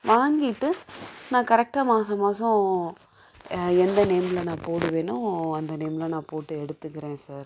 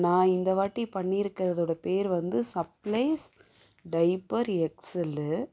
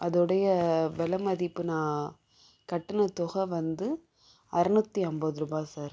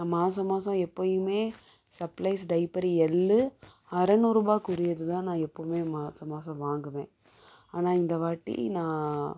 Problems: background sounds at intervals